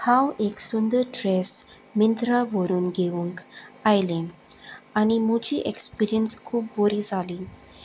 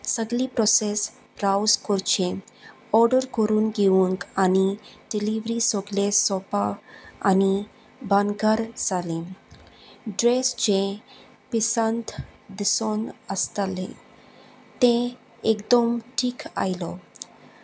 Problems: none marked